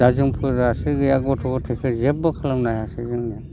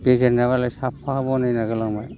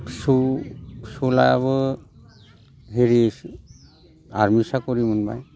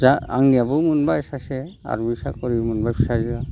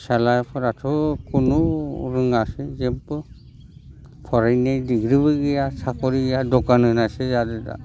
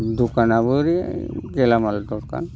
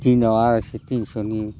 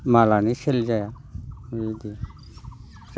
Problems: constant background noise